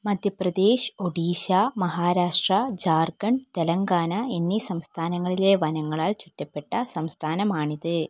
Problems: none marked